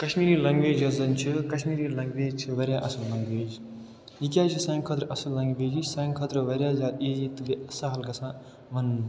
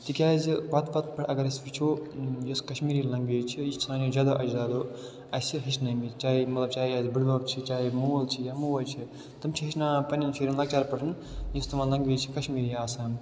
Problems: constant background noise